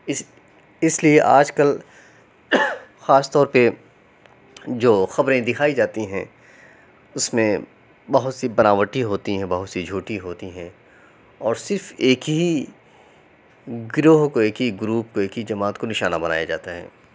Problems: constant background noise